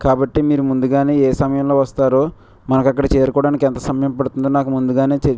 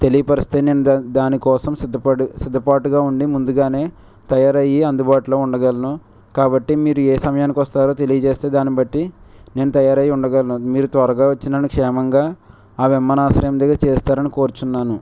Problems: none marked